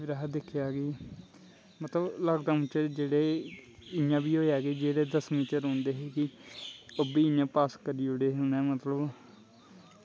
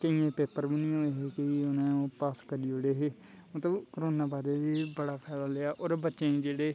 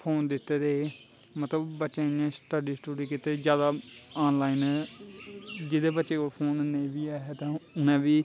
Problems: constant background noise